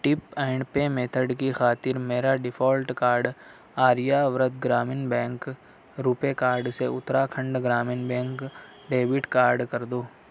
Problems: none marked